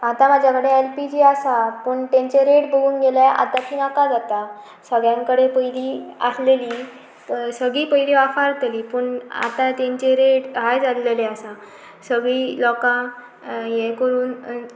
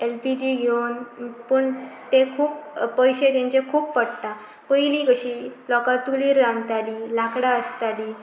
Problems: background sounds at intervals